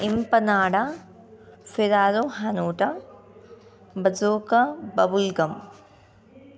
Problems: continuous background conversations